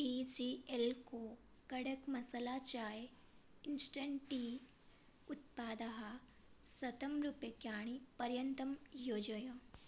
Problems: low volume